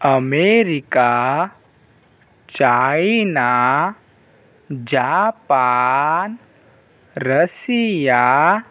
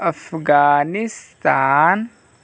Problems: constant background noise, background conversations at intervals